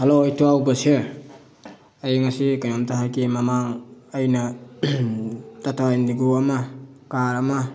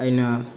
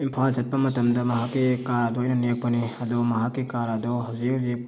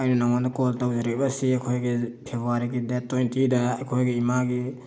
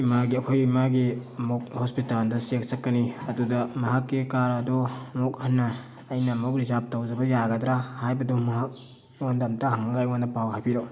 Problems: constant background noise